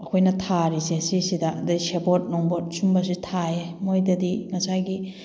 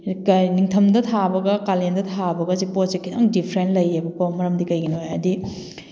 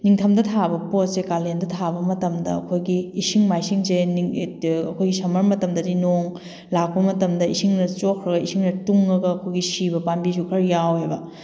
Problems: background sounds at intervals